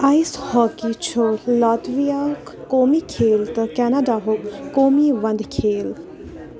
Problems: background sounds at intervals, continuous background conversations